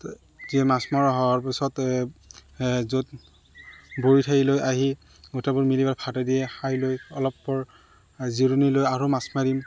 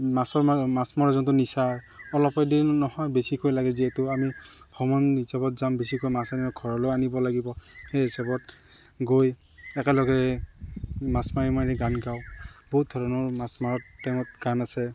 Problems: none marked